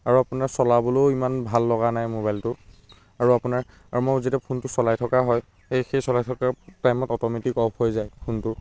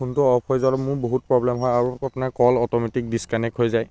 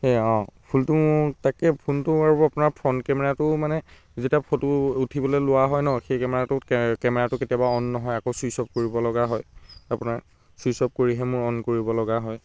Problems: background sounds at intervals